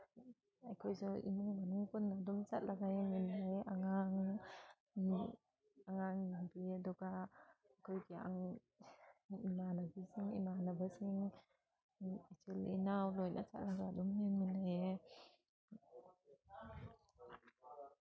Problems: background sounds at intervals, background conversations at intervals